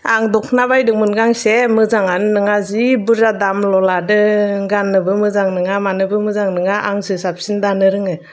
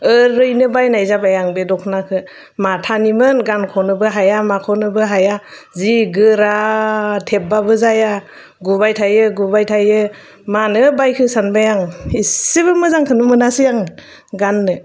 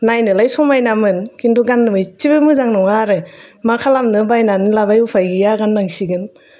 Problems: none marked